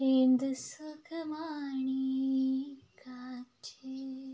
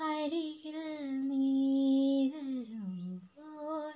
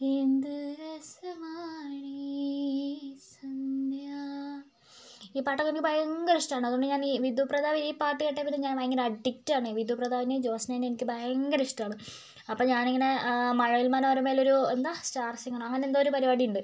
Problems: none marked